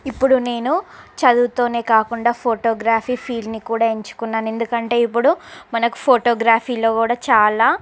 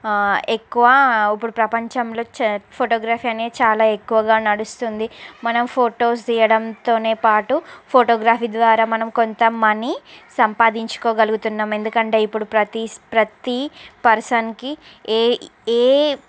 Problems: background conversations at intervals